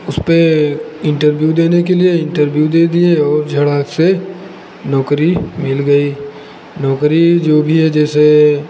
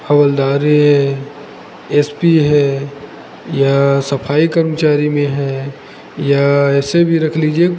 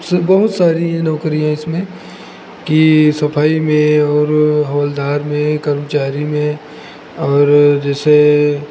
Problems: constant background noise